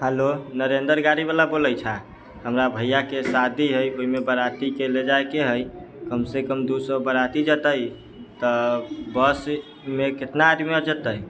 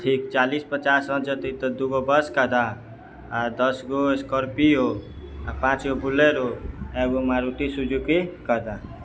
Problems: background sounds at intervals